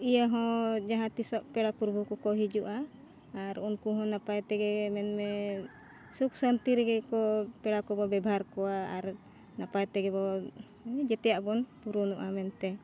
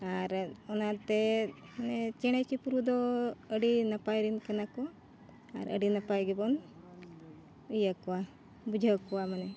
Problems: none marked